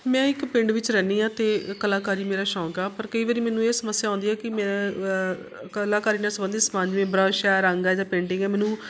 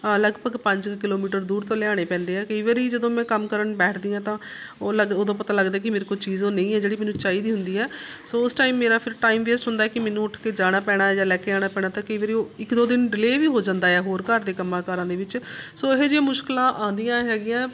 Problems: none marked